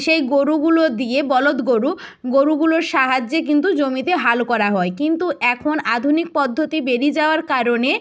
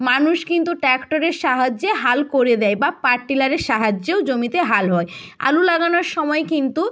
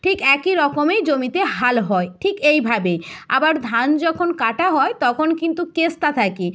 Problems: none marked